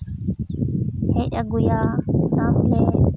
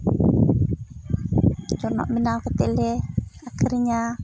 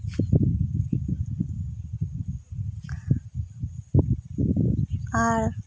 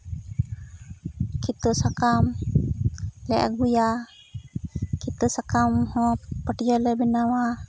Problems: constant background noise